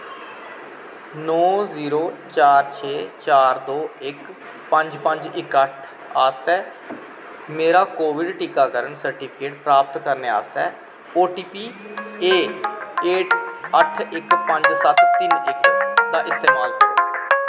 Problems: constant background noise